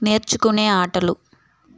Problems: none marked